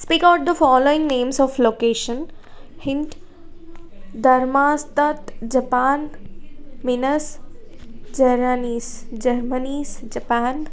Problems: none marked